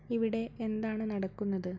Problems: low volume